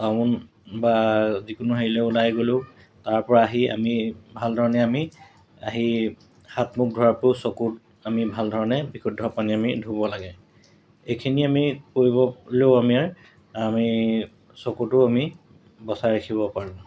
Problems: constant background noise, background conversations at intervals